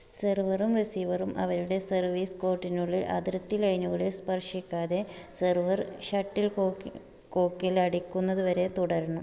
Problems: low volume